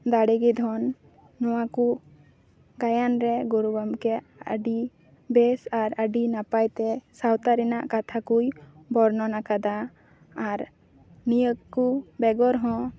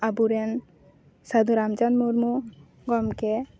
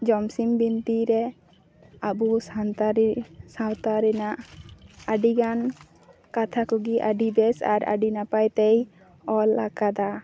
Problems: background sounds at intervals